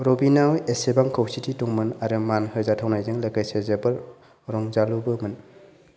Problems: none marked